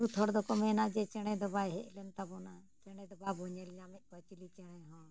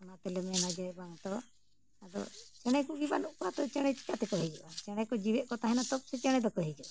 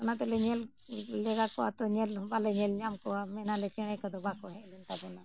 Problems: background sounds at intervals